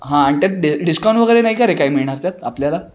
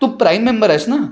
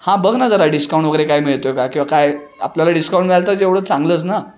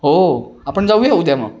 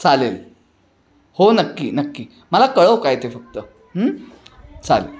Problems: none marked